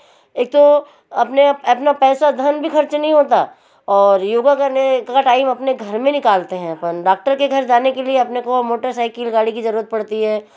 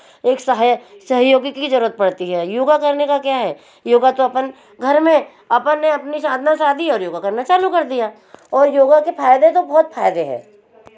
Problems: constant background noise